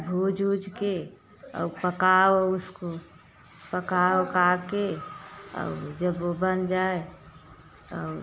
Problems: constant background noise